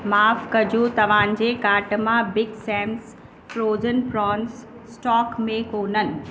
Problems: constant background noise